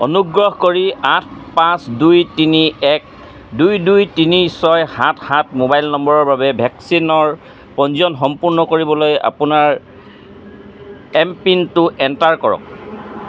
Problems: constant background noise